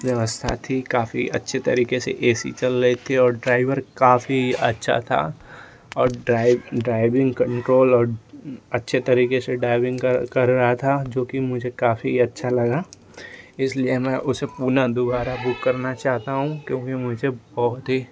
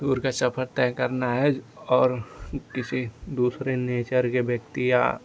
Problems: constant background noise